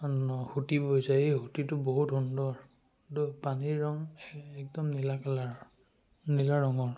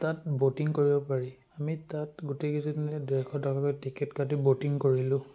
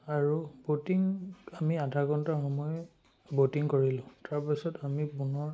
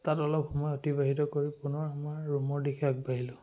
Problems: background sounds at intervals